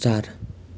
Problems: none marked